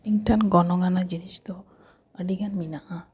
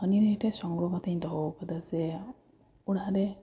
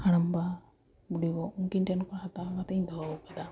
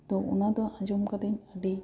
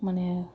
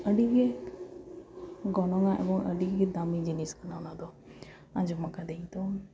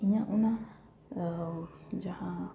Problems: none marked